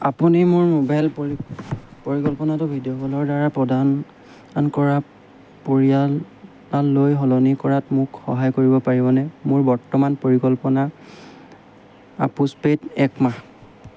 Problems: none marked